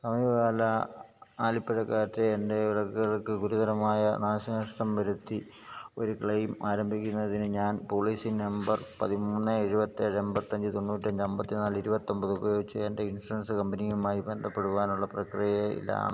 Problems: low volume